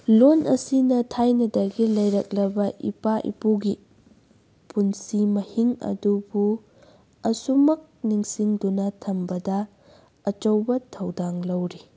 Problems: background sounds at intervals